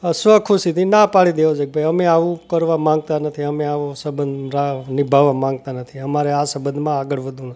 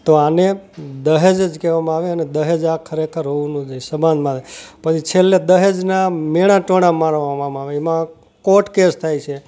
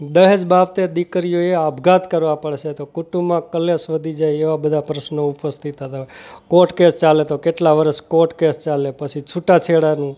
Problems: none marked